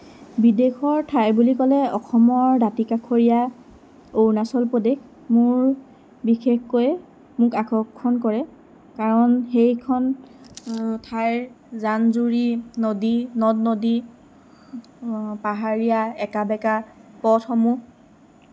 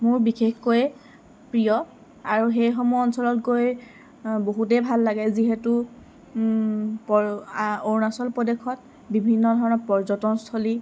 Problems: constant background noise